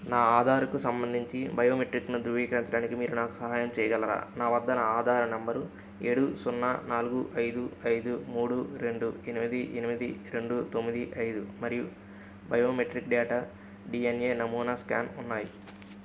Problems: constant background noise